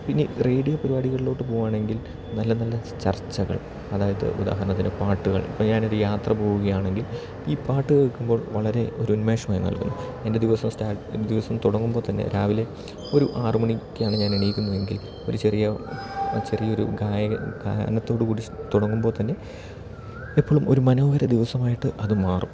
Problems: background sounds at intervals